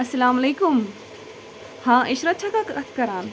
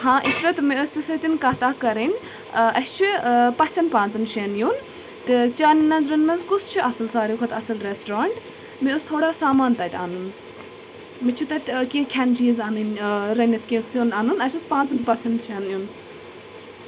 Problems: background sounds at intervals